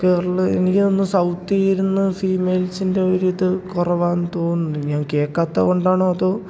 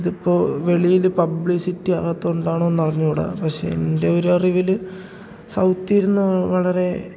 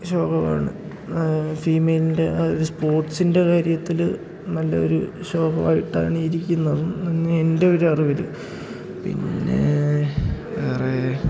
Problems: background sounds at intervals, low volume